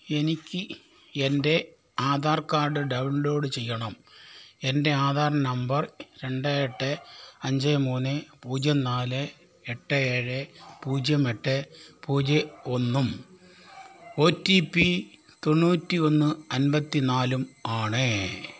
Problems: background sounds at intervals